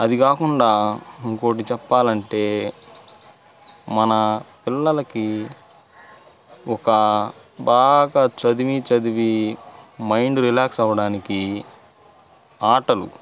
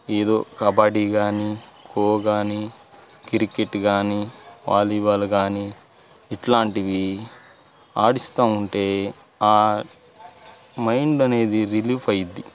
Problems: constant background noise, background conversations at intervals